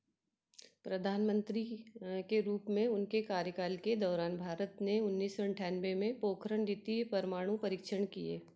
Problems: background sounds at intervals